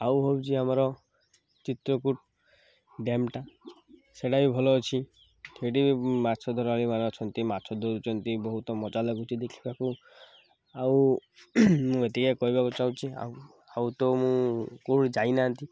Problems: background sounds at intervals